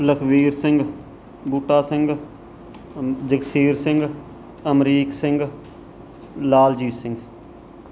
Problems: background sounds at intervals